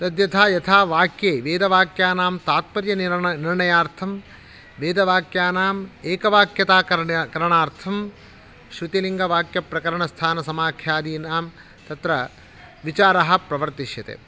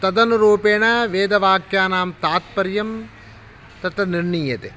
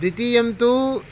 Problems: constant background noise